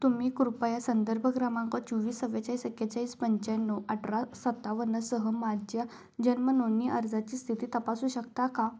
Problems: none marked